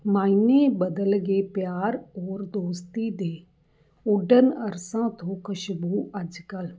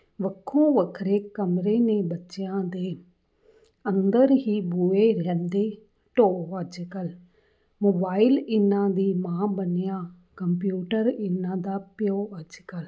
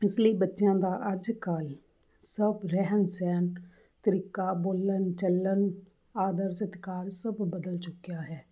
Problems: none marked